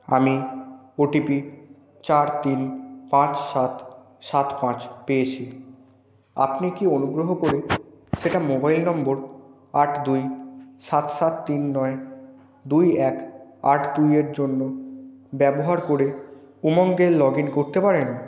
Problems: background conversations at intervals